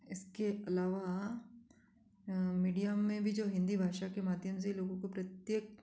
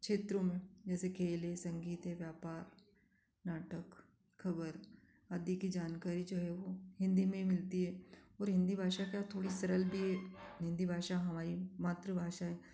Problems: constant background noise